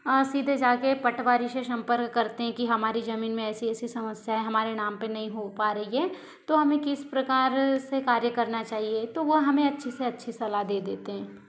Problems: continuous background conversations